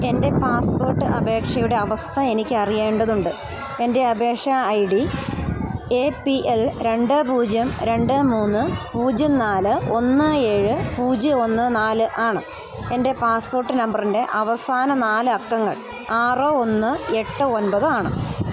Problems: continuous background conversations